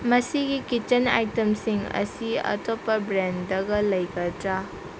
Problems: constant background noise